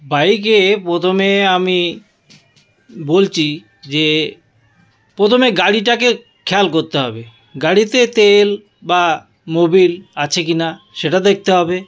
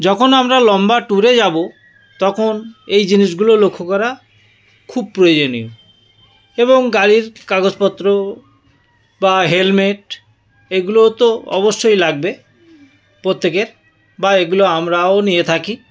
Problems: constant background noise, continuous background conversations